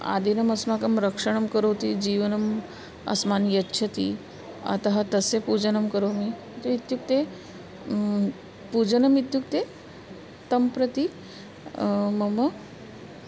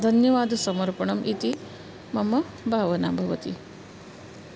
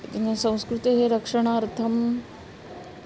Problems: none marked